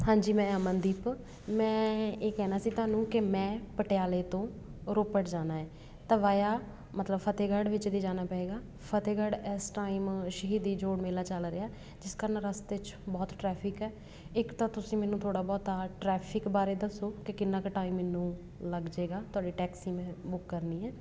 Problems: background sounds at intervals